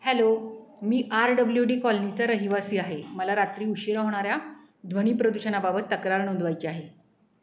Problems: none marked